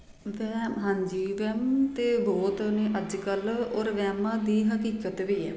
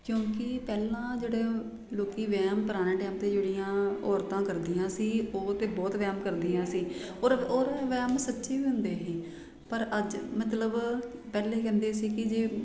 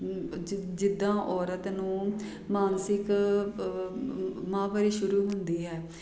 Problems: none marked